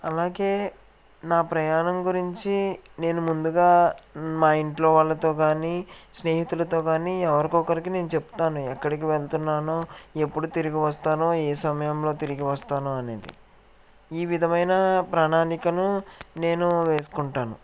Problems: background sounds at intervals